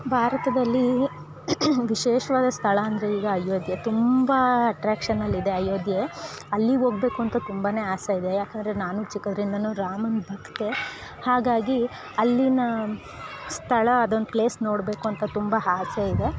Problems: background sounds at intervals